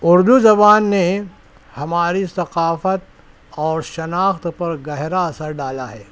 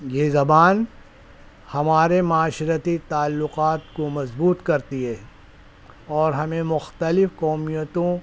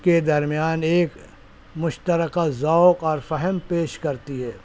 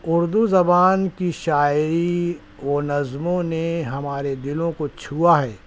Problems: none marked